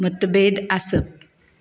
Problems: none marked